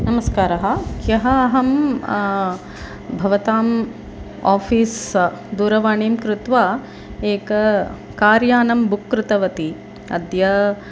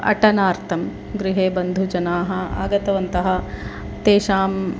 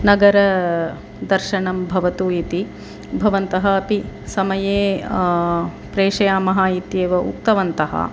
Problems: constant background noise